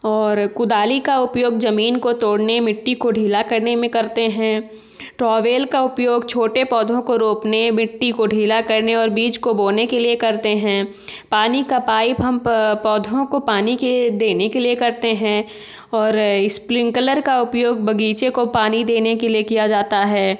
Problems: none marked